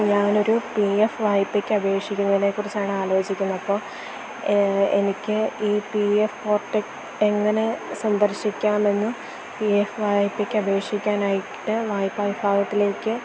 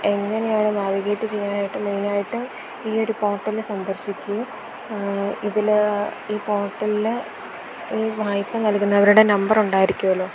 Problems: constant background noise